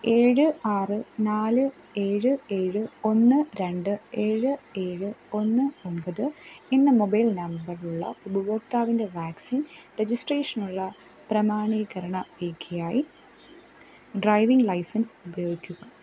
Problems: background sounds at intervals